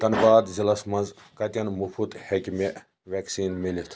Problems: background conversations at intervals